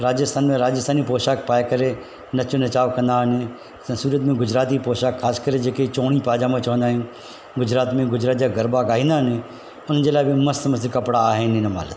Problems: constant background noise